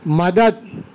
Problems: none marked